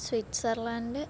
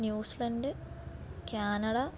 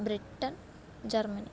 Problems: low volume